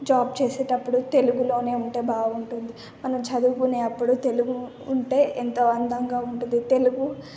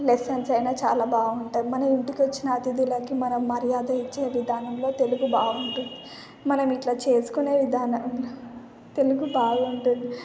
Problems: none marked